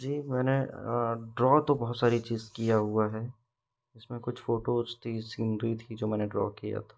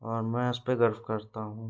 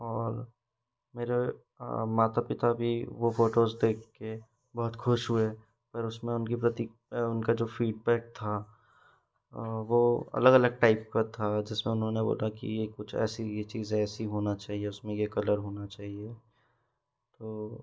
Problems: background sounds at intervals